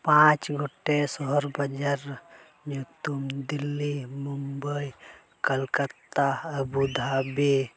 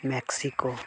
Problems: background conversations at intervals